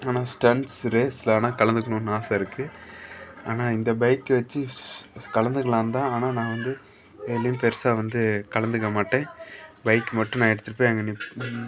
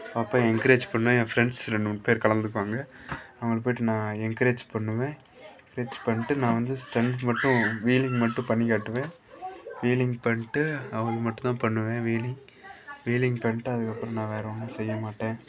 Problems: background sounds at intervals, background conversations at intervals